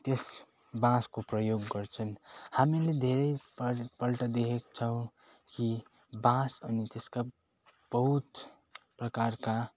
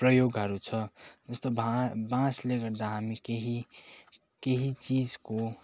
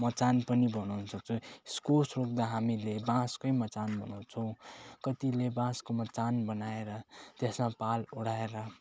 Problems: constant background noise